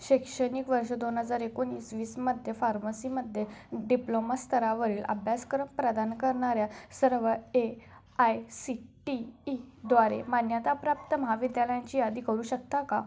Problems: background sounds at intervals, background conversations at intervals